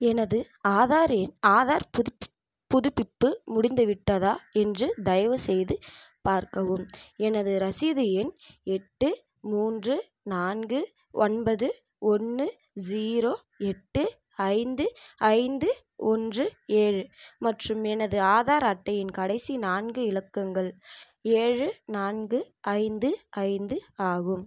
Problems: background sounds at intervals